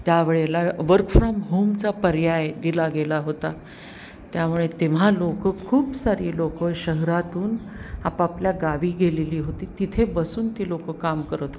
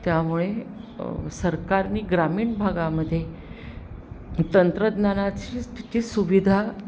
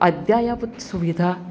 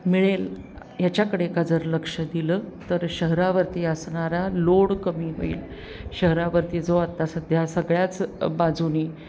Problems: background sounds at intervals